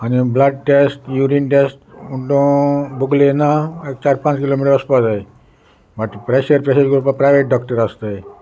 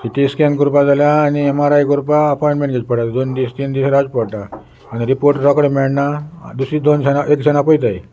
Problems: constant background noise